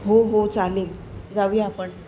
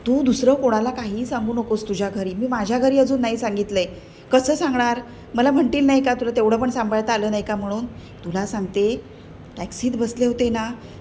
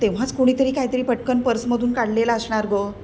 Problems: constant background noise